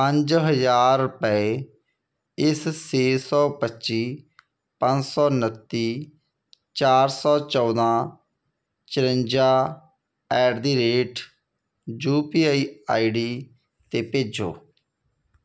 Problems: none marked